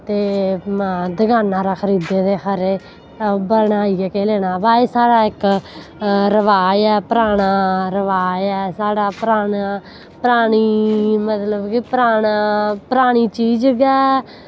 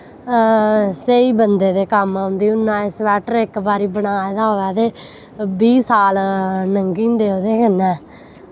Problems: background sounds at intervals